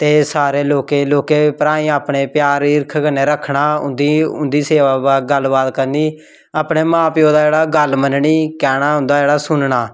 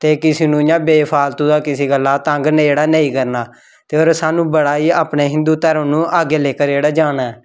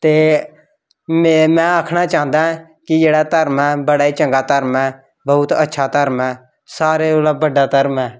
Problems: background sounds at intervals